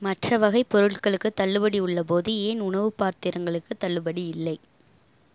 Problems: none marked